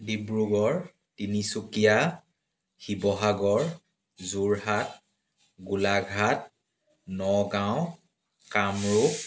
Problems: background sounds at intervals